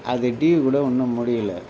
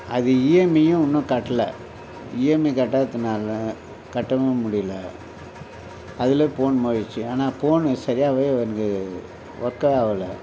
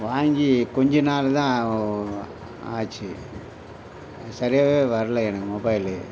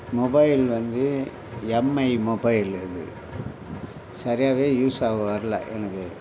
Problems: constant background noise